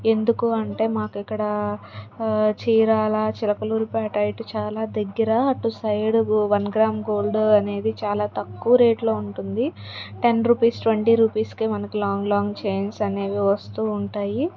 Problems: background conversations at intervals